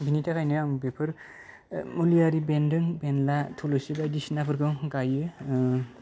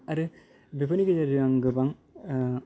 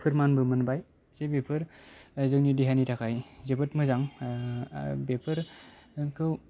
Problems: low volume